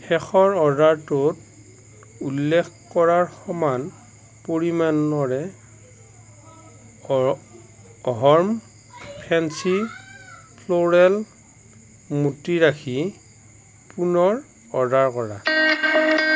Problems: constant background noise